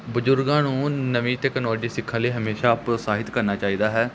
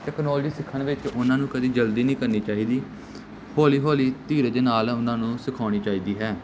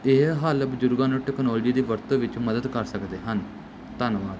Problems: constant background noise